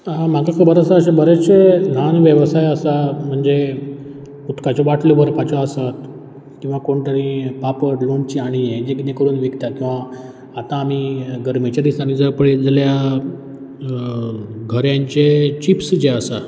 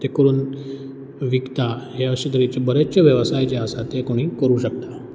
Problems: background sounds at intervals